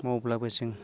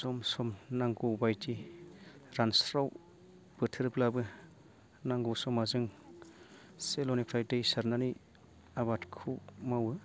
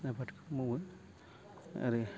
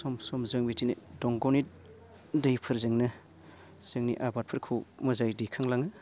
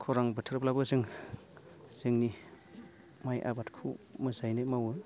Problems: low volume